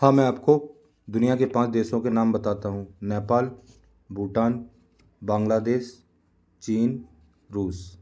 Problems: none marked